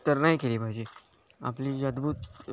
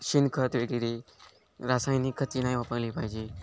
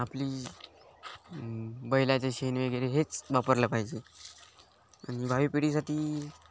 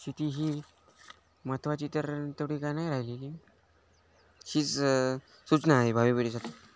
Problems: constant background noise, background conversations at intervals